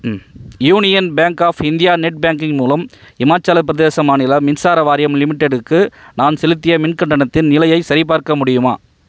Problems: background sounds at intervals